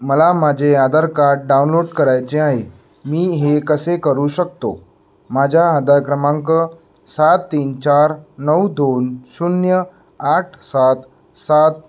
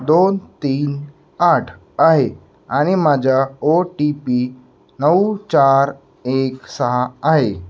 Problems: none marked